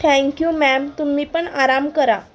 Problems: none marked